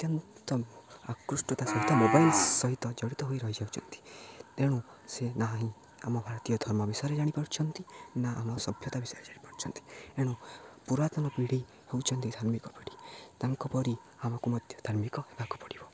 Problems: low volume